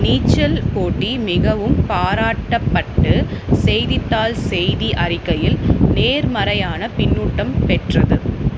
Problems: constant background noise